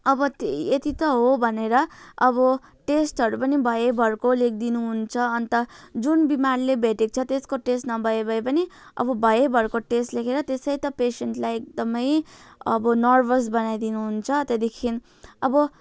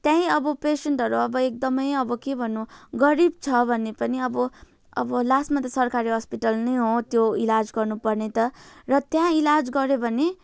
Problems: continuous background conversations